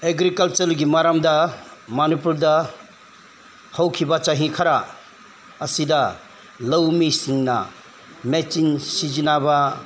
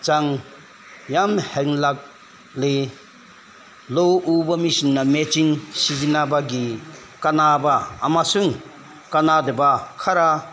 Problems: none marked